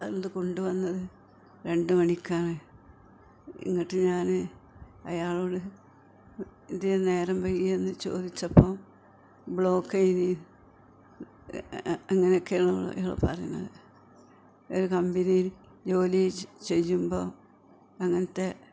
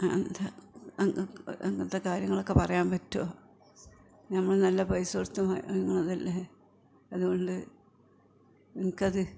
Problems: background conversations at intervals